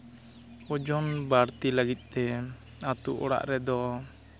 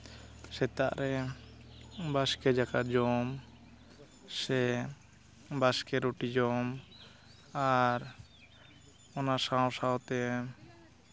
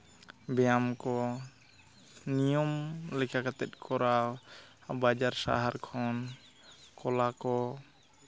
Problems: constant background noise